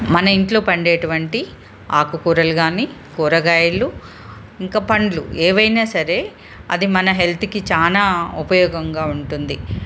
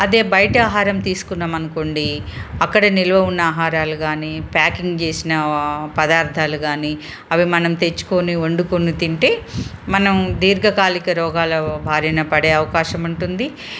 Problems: none marked